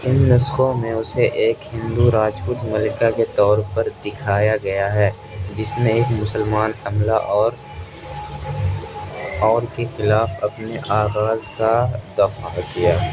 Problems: constant background noise